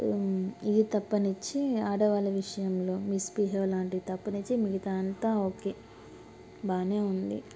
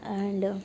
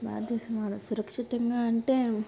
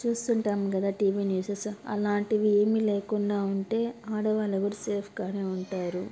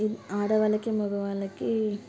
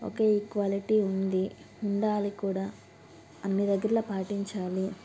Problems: constant background noise